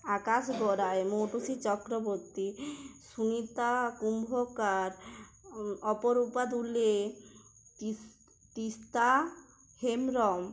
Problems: background sounds at intervals